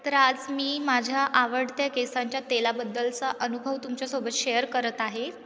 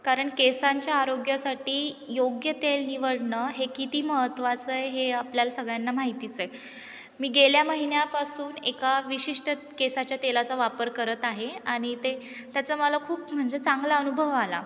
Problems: none marked